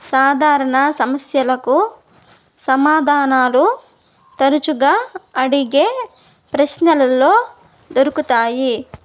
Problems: none marked